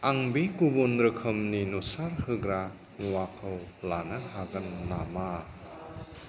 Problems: constant background noise